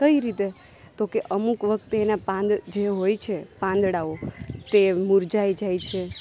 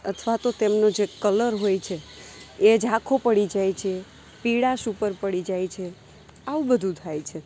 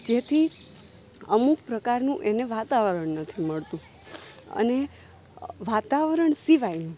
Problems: none marked